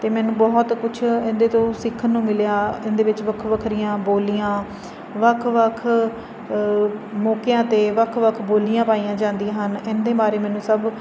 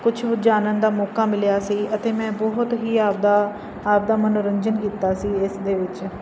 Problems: constant background noise